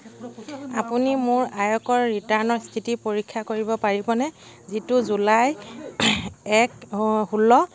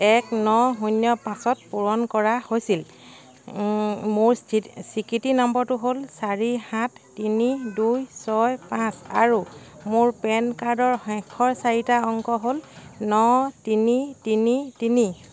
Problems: none marked